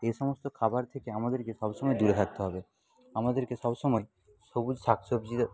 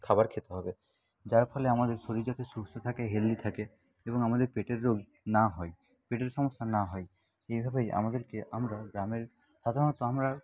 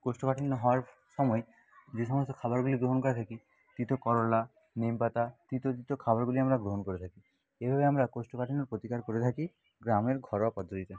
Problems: background sounds at intervals, low volume